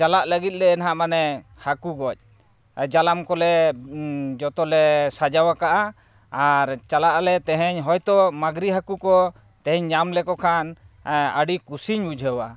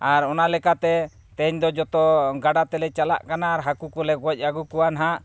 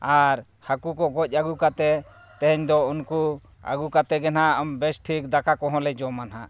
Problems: none marked